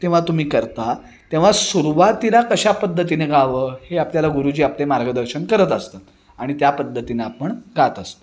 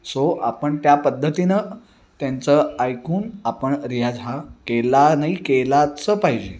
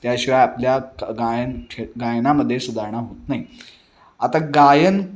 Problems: background sounds at intervals, continuous background conversations